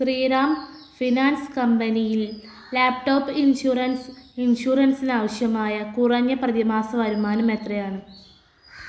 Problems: background sounds at intervals